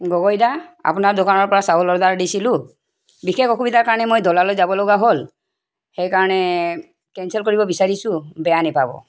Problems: background sounds at intervals